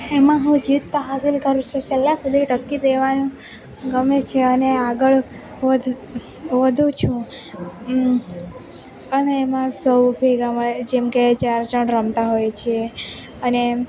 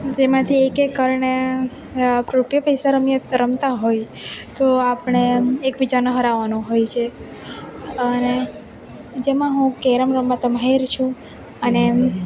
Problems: constant background noise